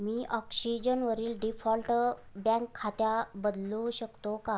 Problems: constant background noise